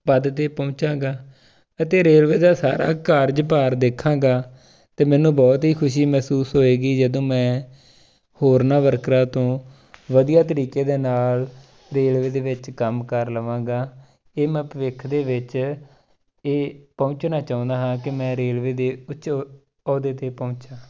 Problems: none marked